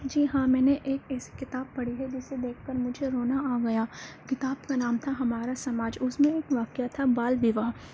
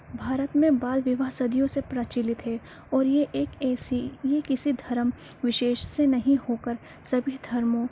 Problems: constant background noise, low volume